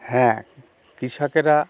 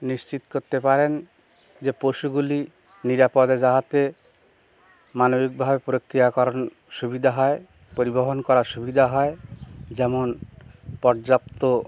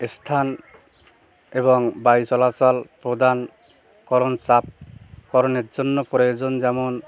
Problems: constant background noise, background conversations at intervals